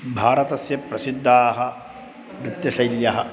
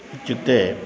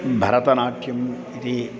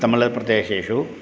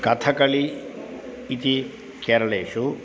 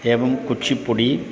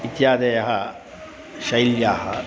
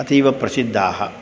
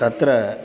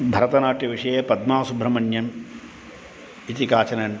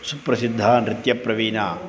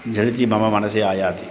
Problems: none marked